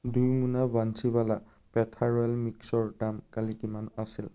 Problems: background sounds at intervals